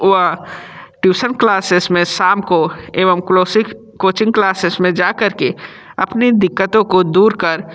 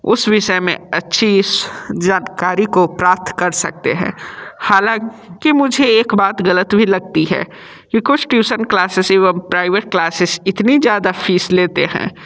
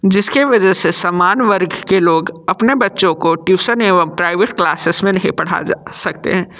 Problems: background sounds at intervals